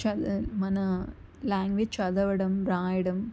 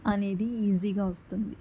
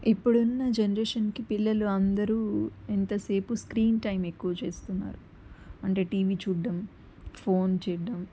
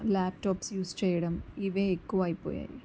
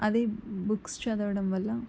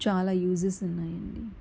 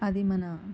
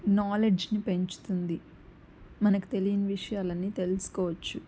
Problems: constant background noise